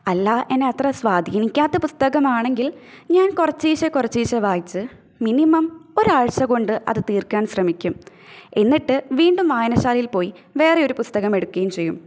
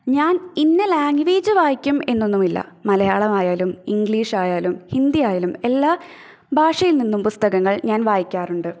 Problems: none marked